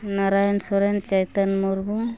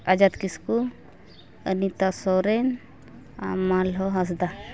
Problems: background sounds at intervals, continuous background conversations